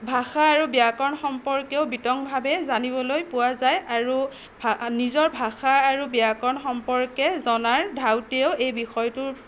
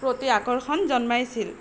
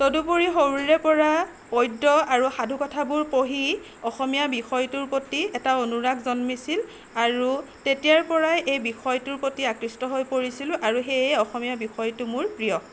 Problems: constant background noise